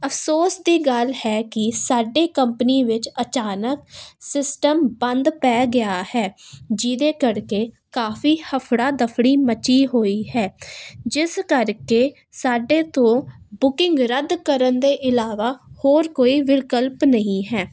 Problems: none marked